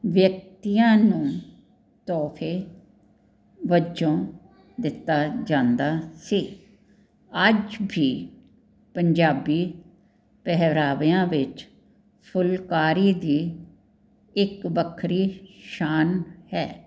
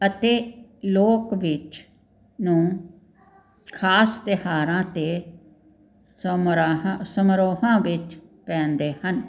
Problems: none marked